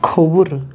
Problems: none marked